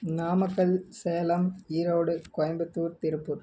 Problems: none marked